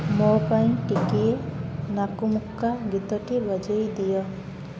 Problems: constant background noise